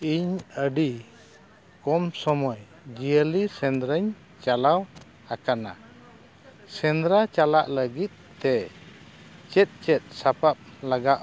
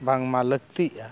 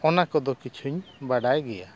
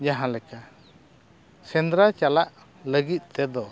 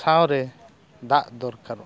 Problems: none marked